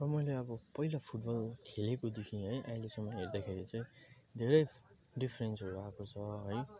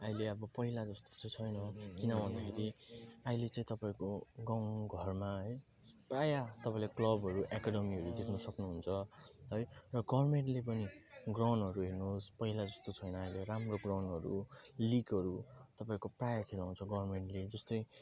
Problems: constant background noise